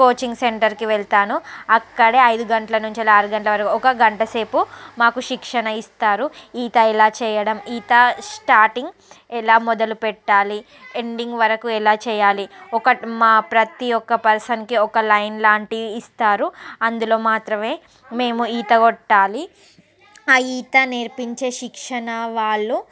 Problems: background conversations at intervals